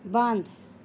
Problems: constant background noise